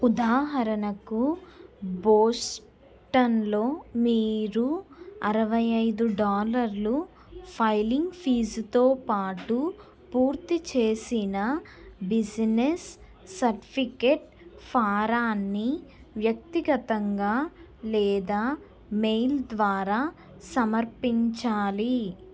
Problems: none marked